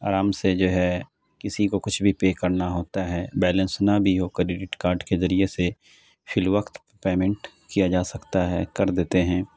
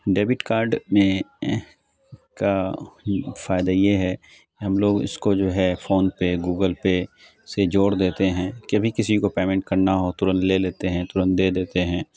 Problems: constant background noise